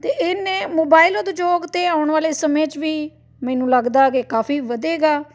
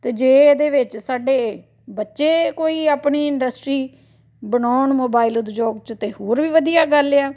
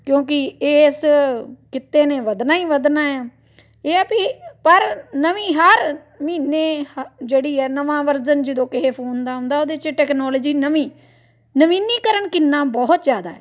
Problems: background sounds at intervals, background conversations at intervals